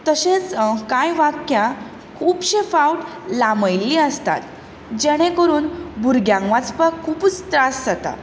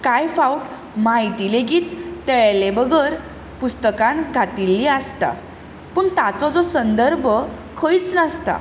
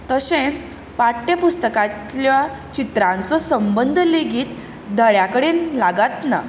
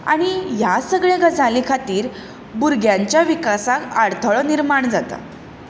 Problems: none marked